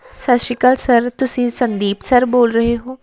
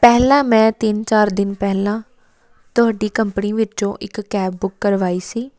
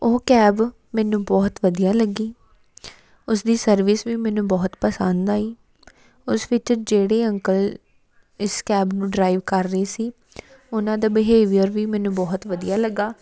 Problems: continuous background conversations